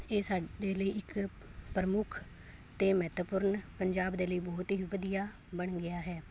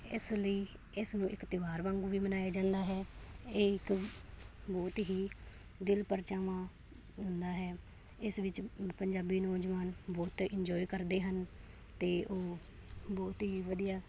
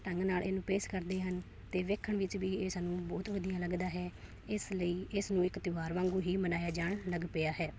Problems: none marked